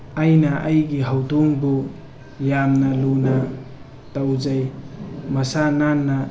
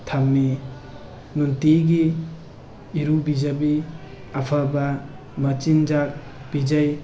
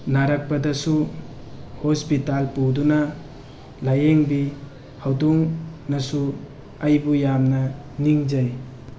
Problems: background sounds at intervals